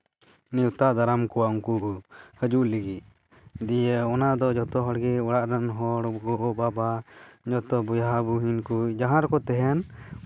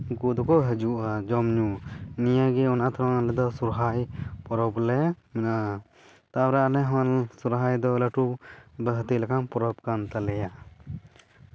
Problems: none marked